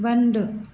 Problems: none marked